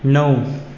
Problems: none marked